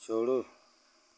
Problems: constant background noise